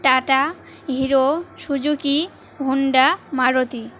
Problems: constant background noise, continuous background conversations